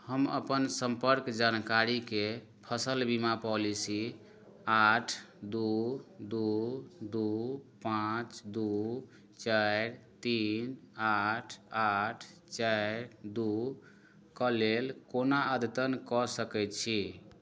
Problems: none marked